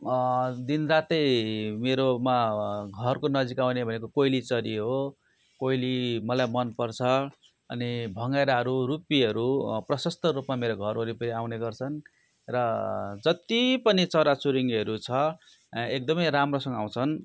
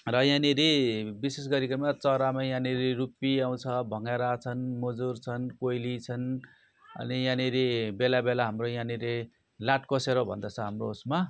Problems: none marked